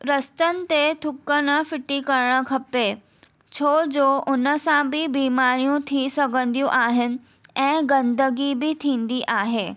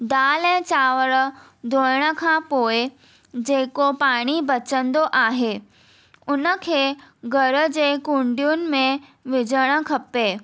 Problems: none marked